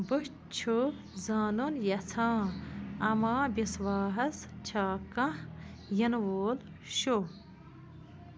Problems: none marked